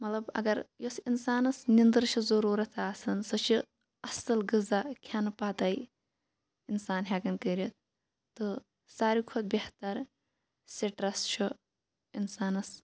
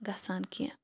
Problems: none marked